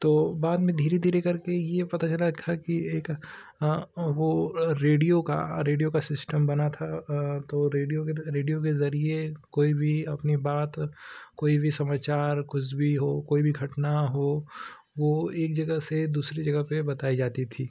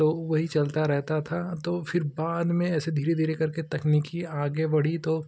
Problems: none marked